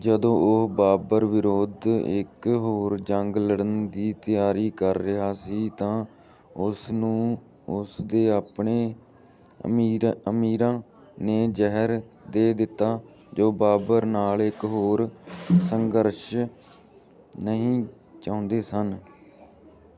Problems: none marked